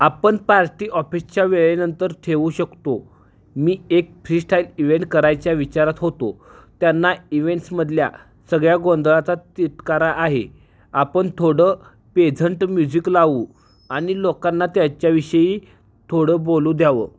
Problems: background sounds at intervals